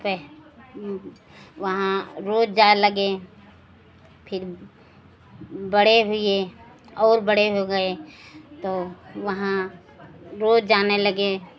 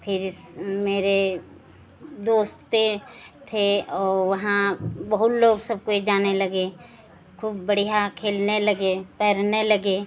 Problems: constant background noise